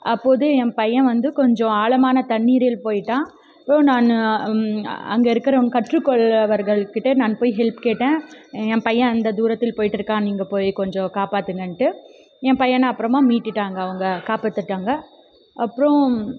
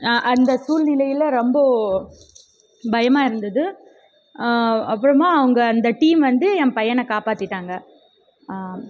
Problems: background conversations at intervals